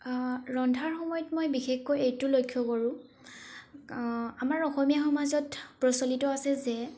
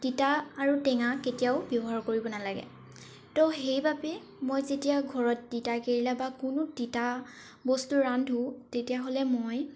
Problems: background sounds at intervals